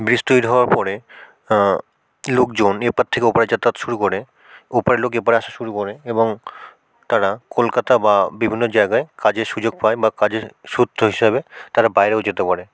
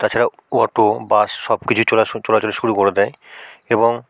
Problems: none marked